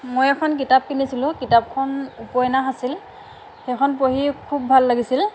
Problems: constant background noise